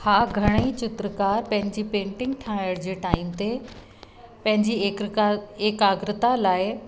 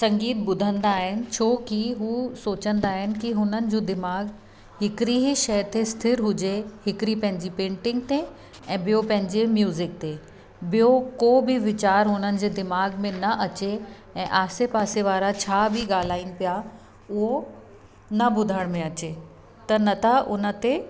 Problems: constant background noise, echo